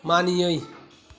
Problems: background conversations at intervals